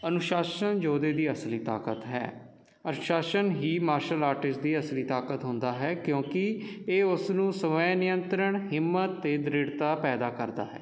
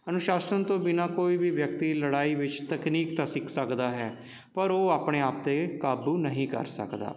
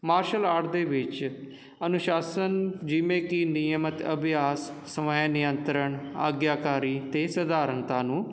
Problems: constant background noise